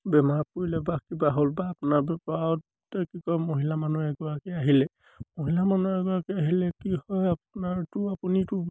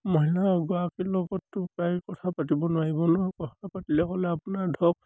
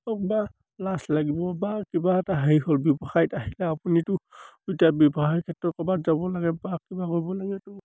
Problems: none marked